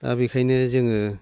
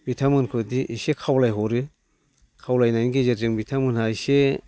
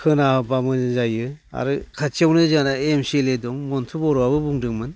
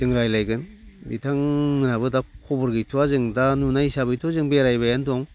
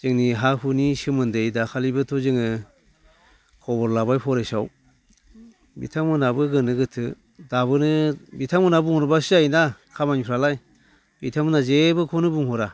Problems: none marked